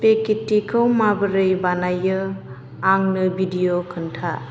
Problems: none marked